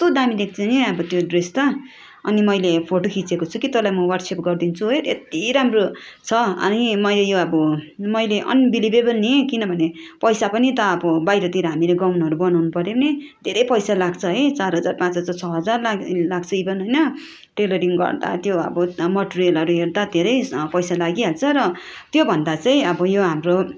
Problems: constant background noise, background conversations at intervals